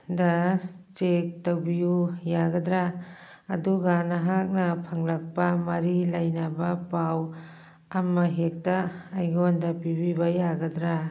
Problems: background sounds at intervals, background conversations at intervals